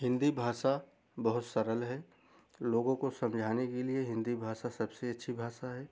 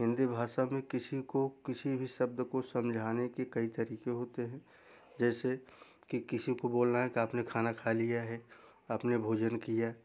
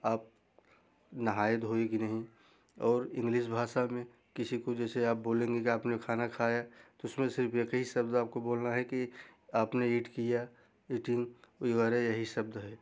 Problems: background sounds at intervals